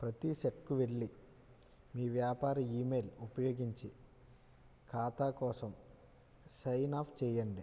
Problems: low volume